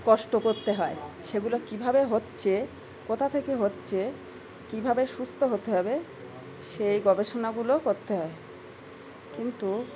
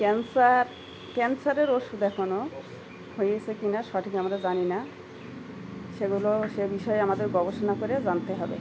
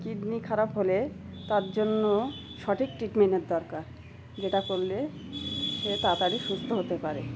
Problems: background sounds at intervals